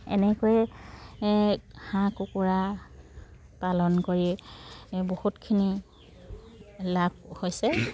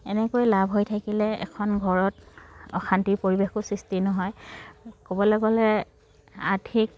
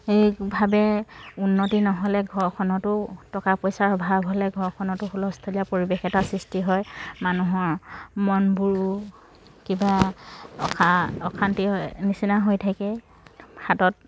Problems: background sounds at intervals, background conversations at intervals